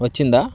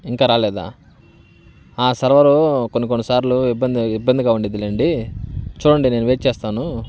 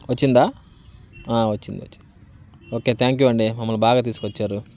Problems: none marked